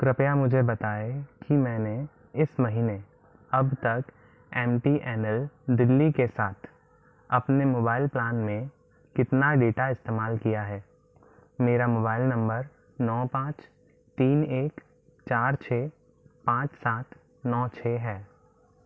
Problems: constant background noise